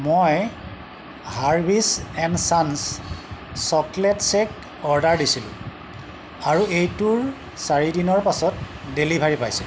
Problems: constant background noise